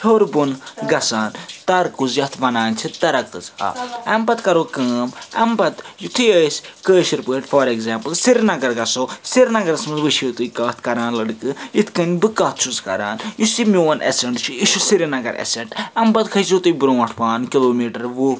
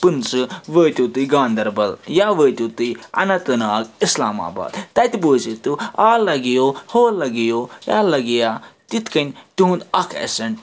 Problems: background sounds at intervals